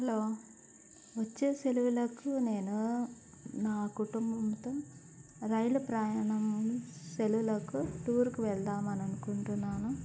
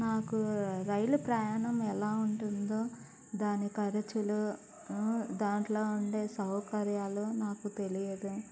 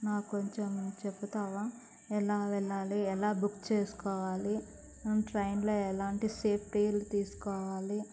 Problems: constant background noise, low volume